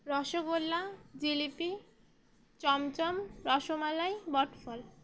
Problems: none marked